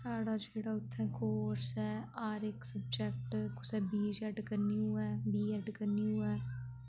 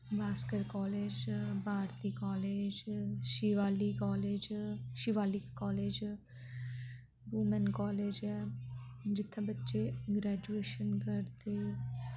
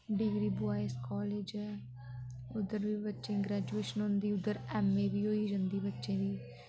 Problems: constant background noise, low volume